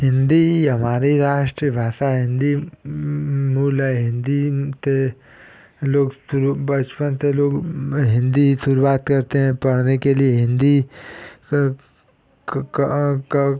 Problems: constant background noise